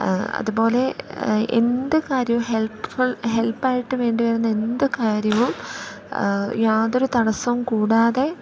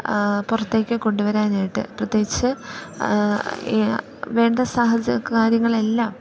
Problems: background sounds at intervals, low volume